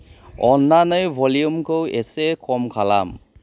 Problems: low volume